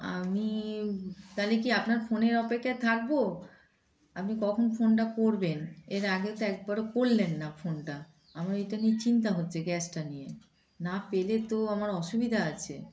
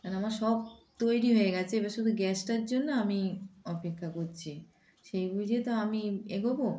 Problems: constant background noise, background conversations at intervals